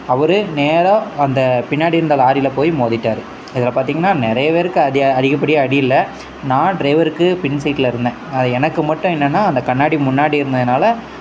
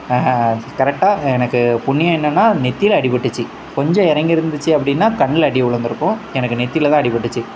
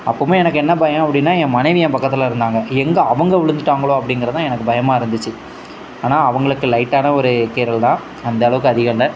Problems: background sounds at intervals